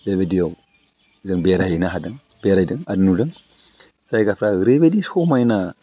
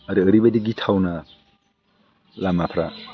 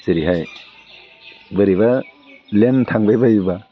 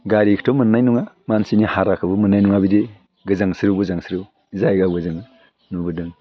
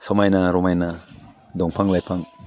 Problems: none marked